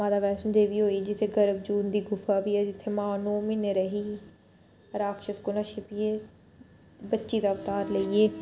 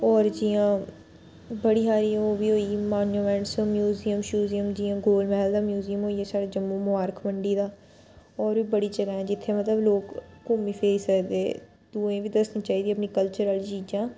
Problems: none marked